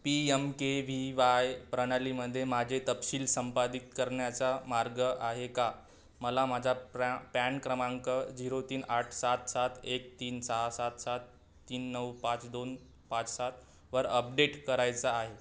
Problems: none marked